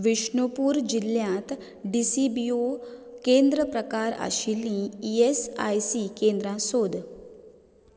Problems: background sounds at intervals